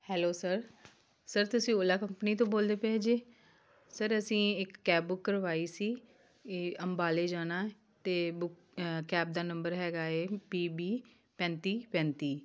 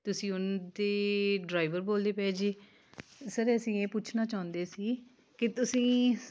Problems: none marked